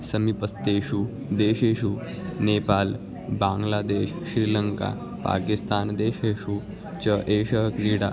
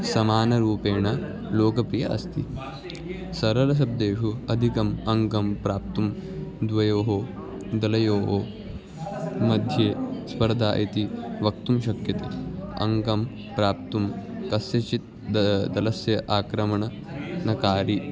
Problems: continuous background conversations